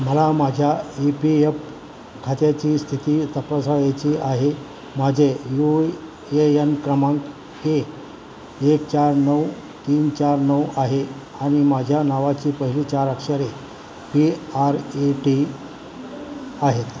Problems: constant background noise